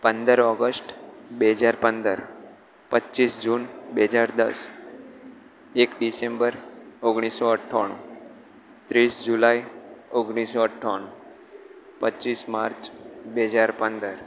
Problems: constant background noise